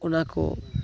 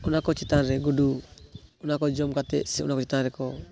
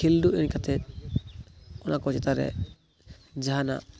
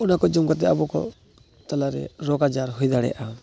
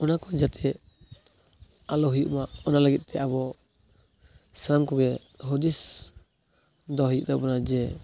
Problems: background sounds at intervals